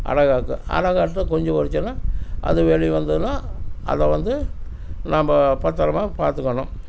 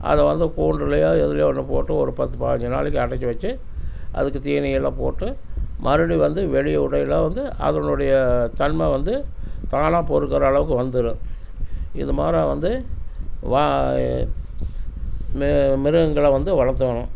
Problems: none marked